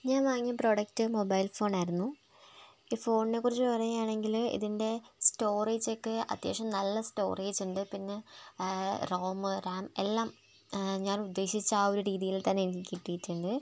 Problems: background sounds at intervals, low volume